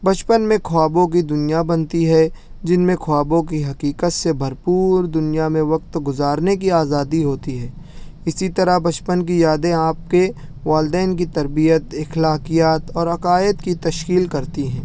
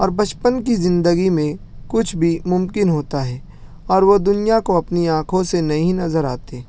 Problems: none marked